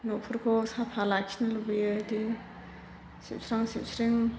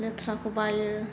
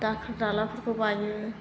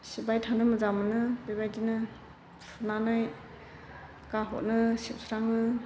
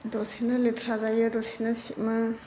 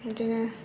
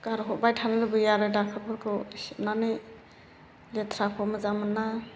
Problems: constant background noise